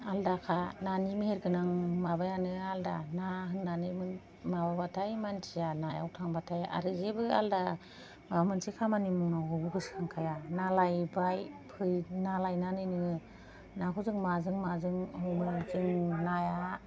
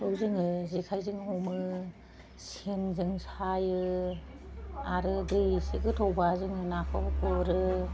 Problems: none marked